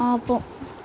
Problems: constant background noise